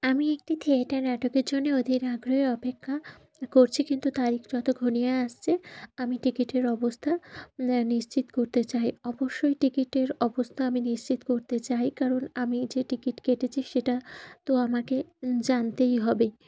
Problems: none marked